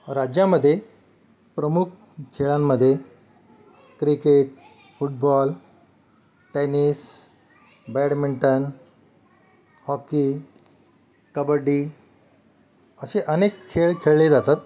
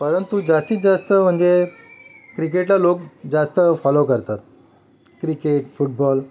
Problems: background sounds at intervals, background conversations at intervals